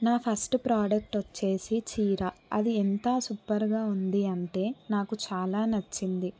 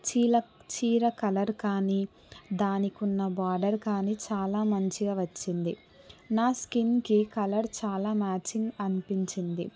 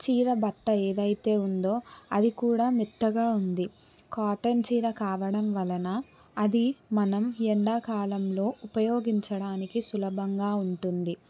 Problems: none marked